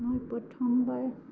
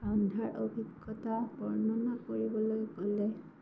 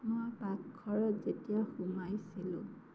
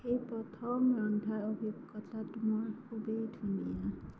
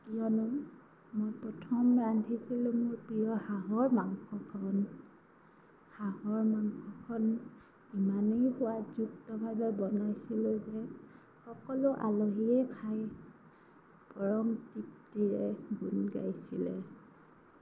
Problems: background sounds at intervals, low volume